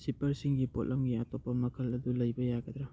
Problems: low volume